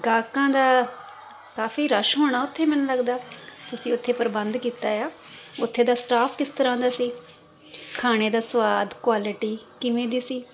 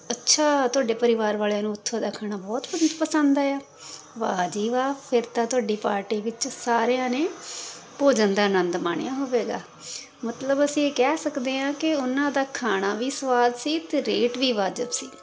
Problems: constant background noise